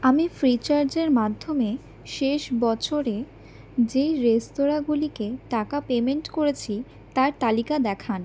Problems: none marked